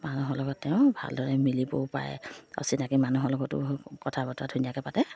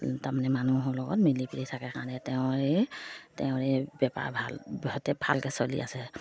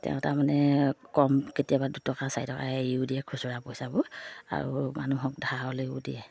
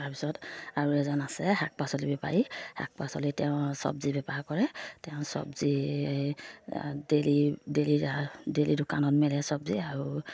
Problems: none marked